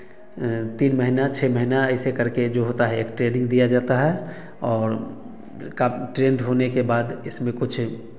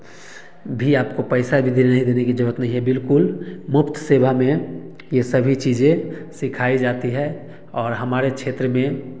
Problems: background sounds at intervals, background conversations at intervals, echo